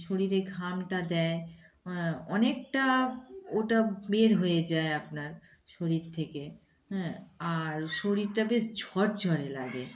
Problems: background sounds at intervals, background conversations at intervals